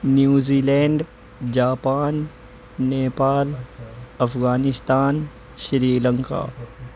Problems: constant background noise